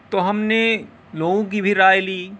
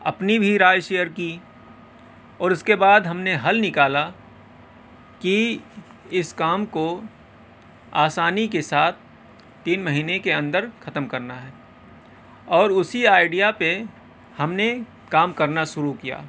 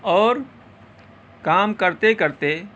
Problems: background sounds at intervals